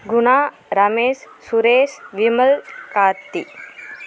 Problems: constant background noise